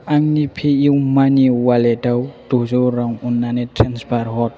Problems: constant background noise